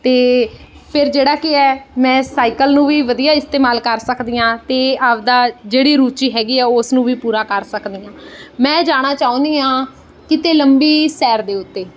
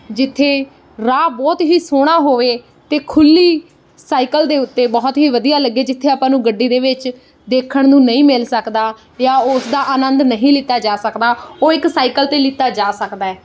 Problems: background sounds at intervals